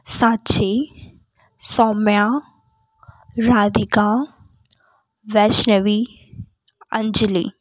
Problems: background sounds at intervals